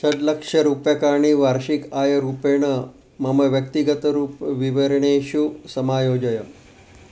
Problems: background sounds at intervals